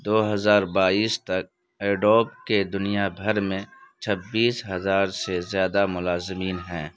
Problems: background sounds at intervals, background conversations at intervals